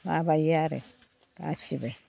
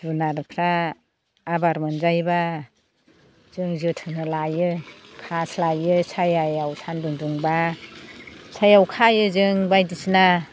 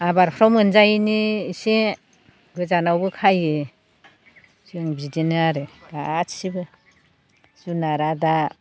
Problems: constant background noise